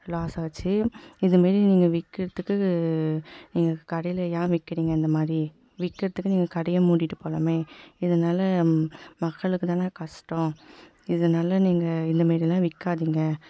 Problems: background sounds at intervals, echo